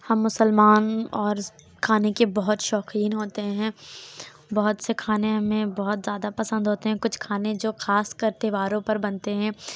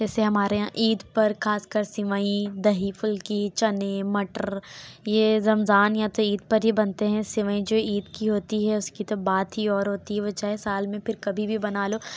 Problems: background sounds at intervals